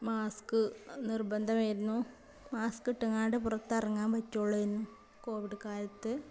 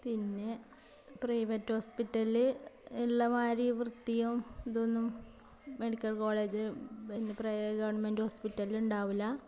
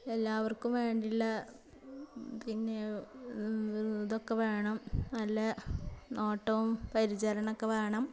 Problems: background sounds at intervals